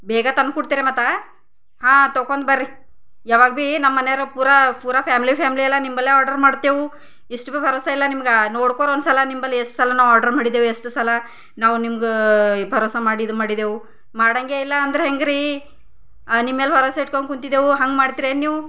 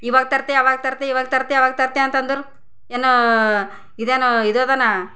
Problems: none marked